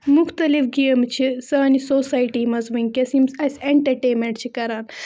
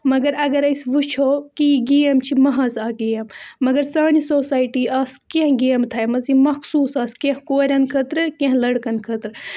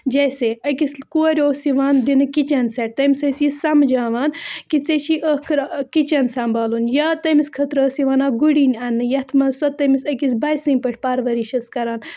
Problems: constant background noise